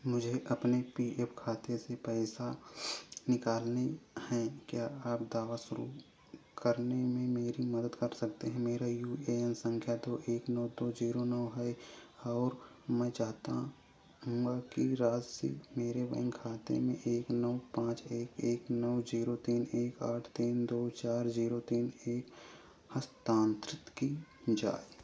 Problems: constant background noise, background conversations at intervals